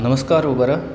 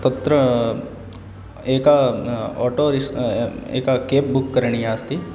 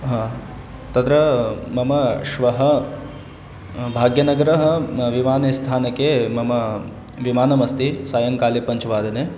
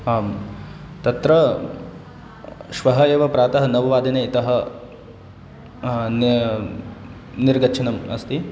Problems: constant background noise